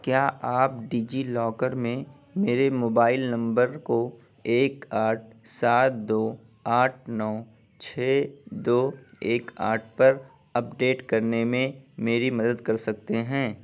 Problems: constant background noise